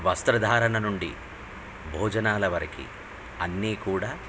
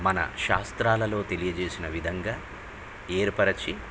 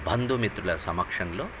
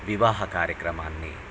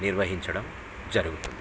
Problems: constant background noise